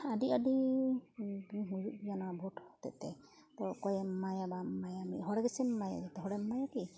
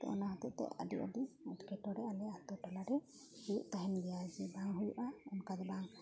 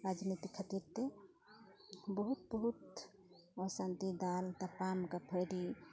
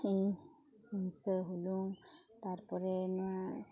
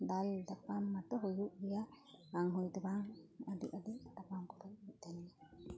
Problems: none marked